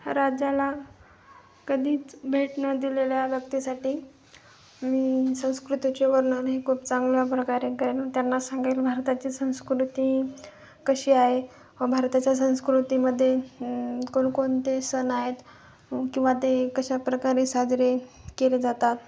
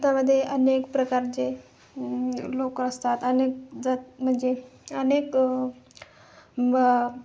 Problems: constant background noise, continuous background conversations